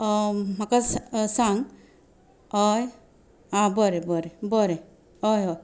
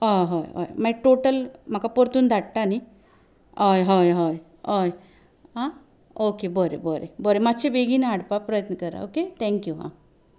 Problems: none marked